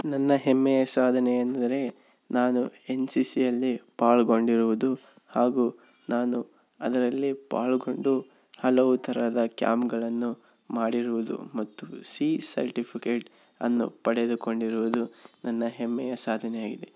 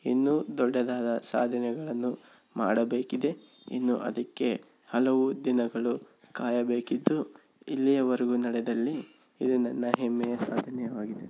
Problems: background sounds at intervals